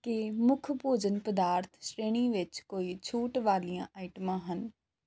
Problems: none marked